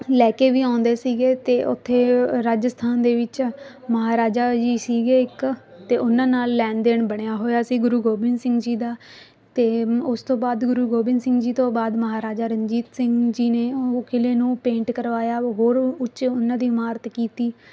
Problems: constant background noise